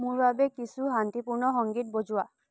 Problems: low volume